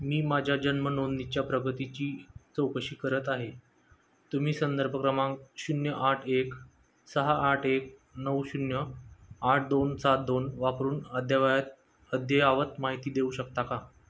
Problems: none marked